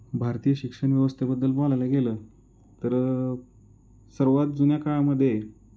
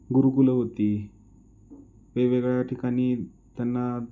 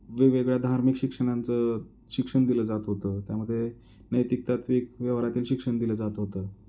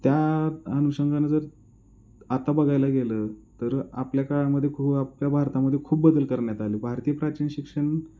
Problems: background sounds at intervals